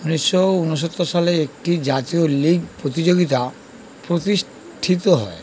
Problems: constant background noise